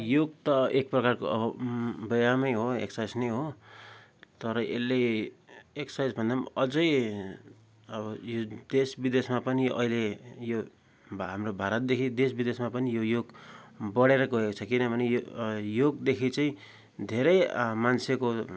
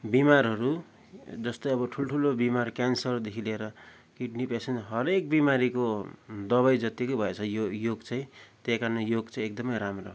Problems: background sounds at intervals